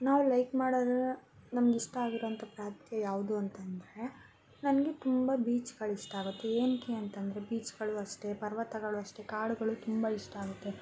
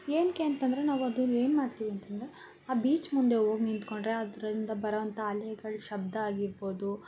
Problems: constant background noise